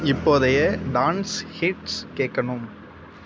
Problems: constant background noise